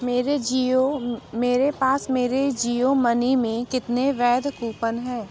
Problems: background sounds at intervals